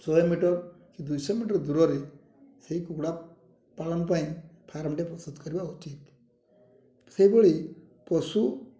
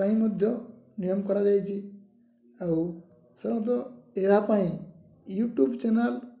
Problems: low volume